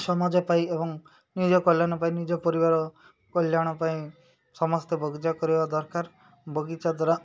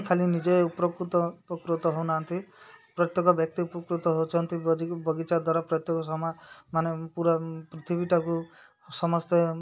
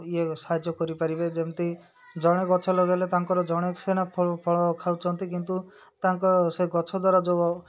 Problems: background sounds at intervals, background conversations at intervals